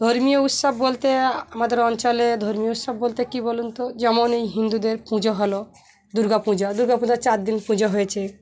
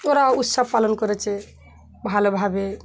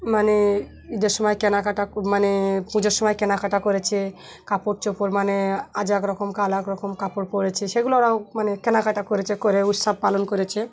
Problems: constant background noise, continuous background conversations